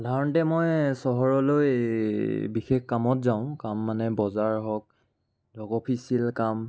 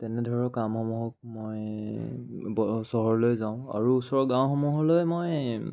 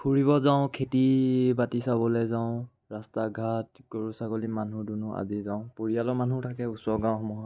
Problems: none marked